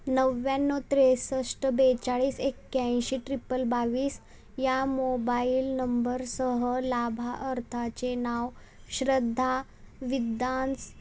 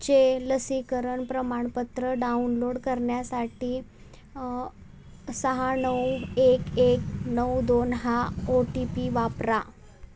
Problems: none marked